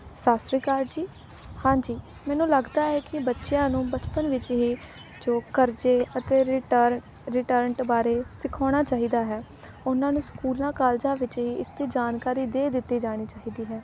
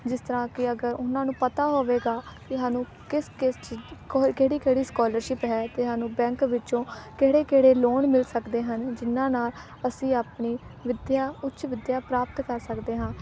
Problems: background conversations at intervals